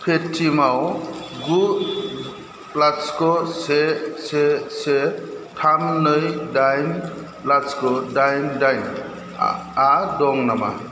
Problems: constant background noise